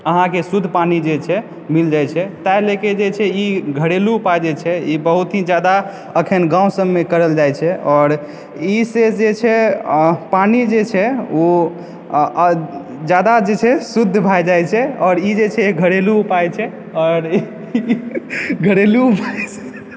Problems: background sounds at intervals, background conversations at intervals